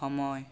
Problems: none marked